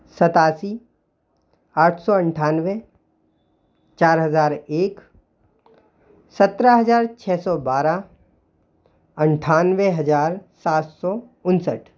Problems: constant background noise